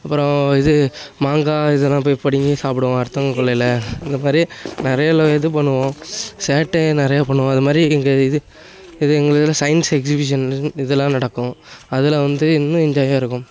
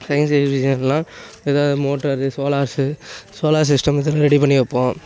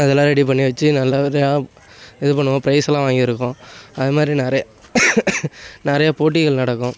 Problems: none marked